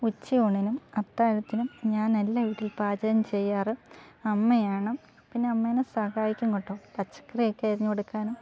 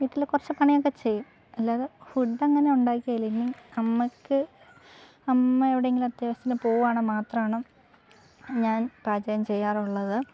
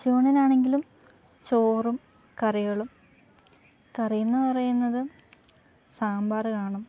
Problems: background sounds at intervals